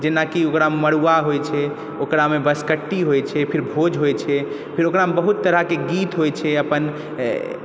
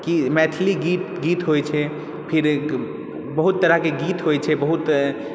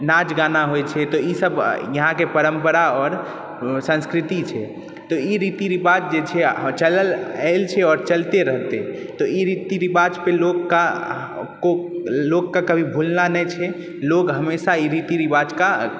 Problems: background sounds at intervals